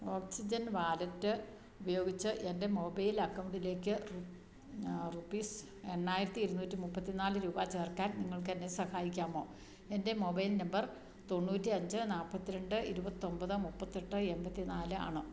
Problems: none marked